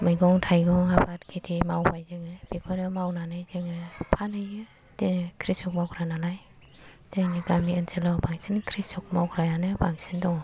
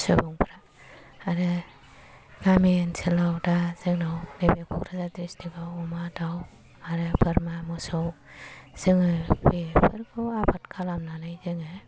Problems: low volume